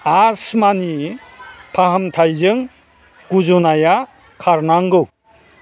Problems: constant background noise